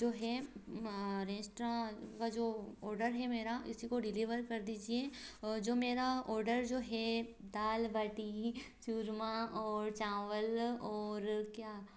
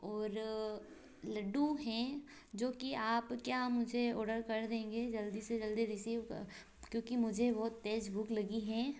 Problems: constant background noise